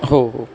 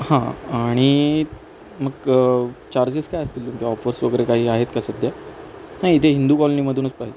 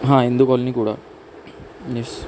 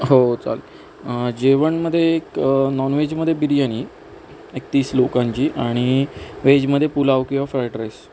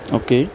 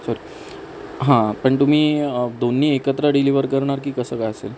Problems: none marked